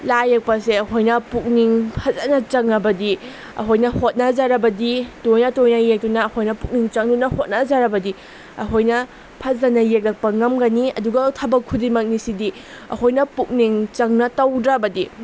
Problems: constant background noise